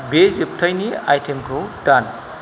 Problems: constant background noise